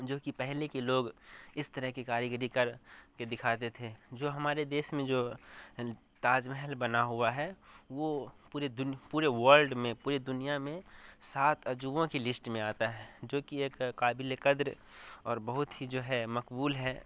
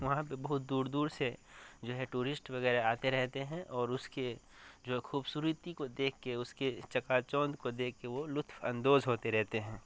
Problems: constant background noise